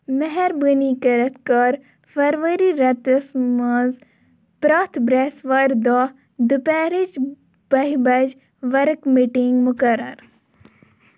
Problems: none marked